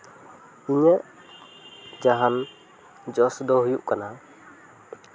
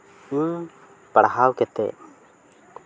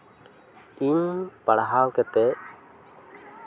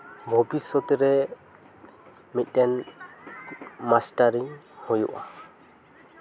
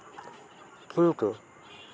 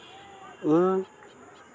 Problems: background conversations at intervals